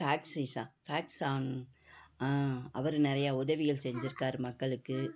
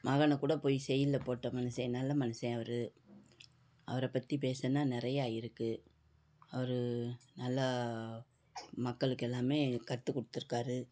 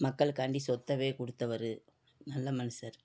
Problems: background conversations at intervals